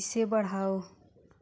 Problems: background sounds at intervals